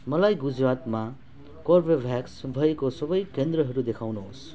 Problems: background sounds at intervals